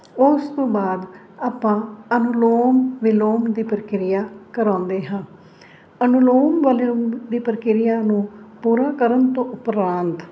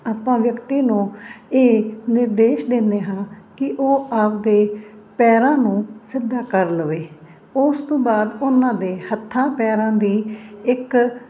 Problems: none marked